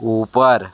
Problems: constant background noise